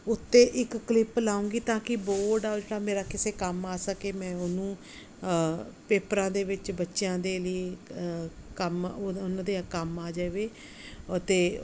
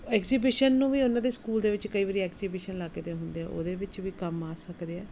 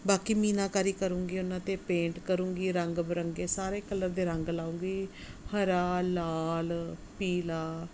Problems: none marked